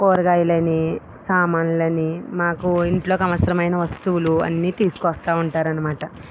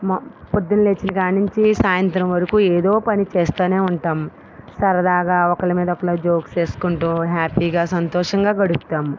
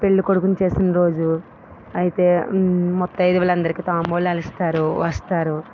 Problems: none marked